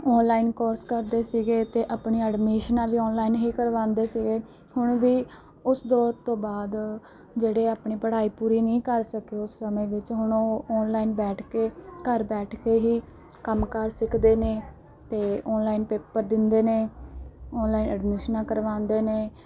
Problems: background sounds at intervals